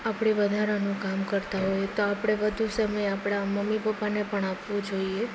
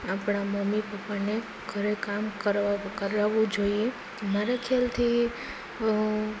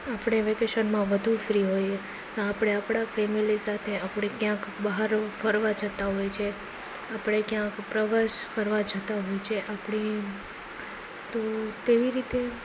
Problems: none marked